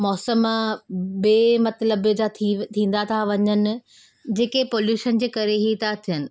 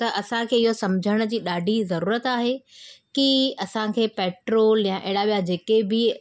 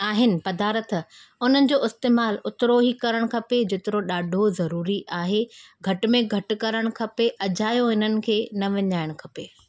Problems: constant background noise